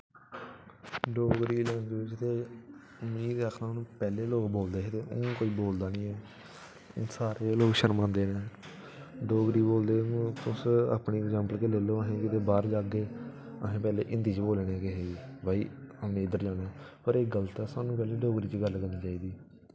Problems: background sounds at intervals